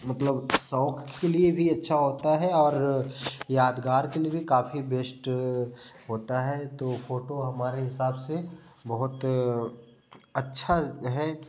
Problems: constant background noise